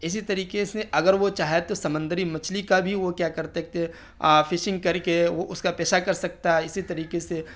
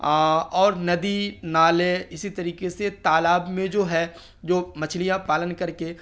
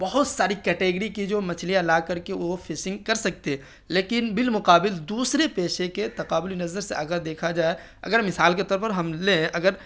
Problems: none marked